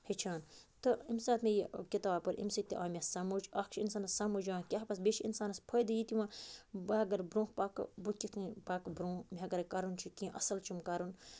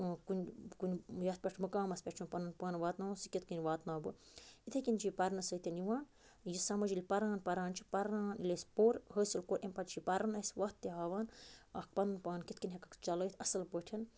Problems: constant background noise